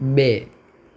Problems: none marked